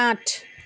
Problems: constant background noise